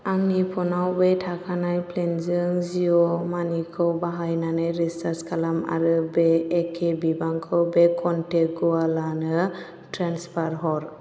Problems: constant background noise